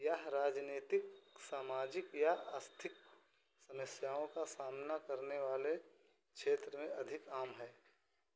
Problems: constant background noise